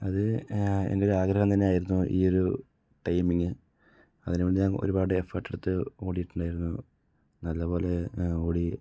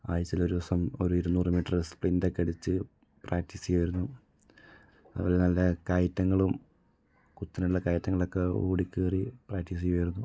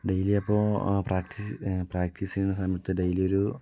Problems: low volume